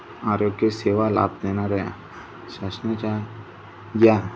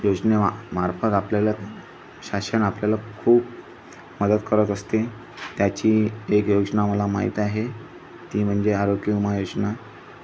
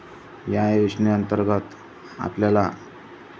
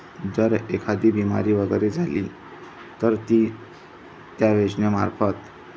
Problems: constant background noise